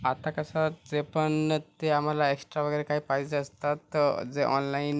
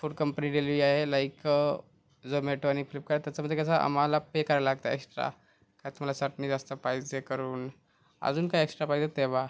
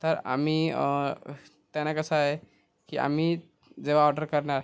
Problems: constant background noise